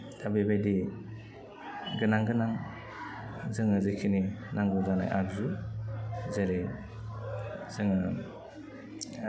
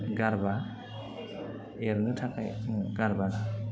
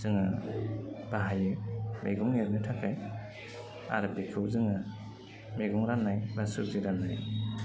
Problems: low volume